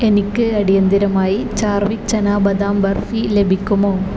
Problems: constant background noise